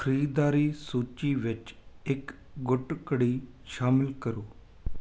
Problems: constant background noise